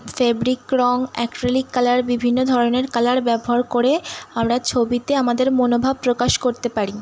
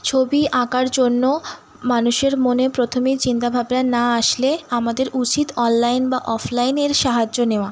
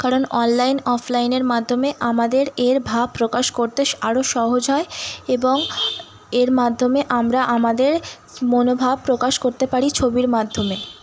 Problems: constant background noise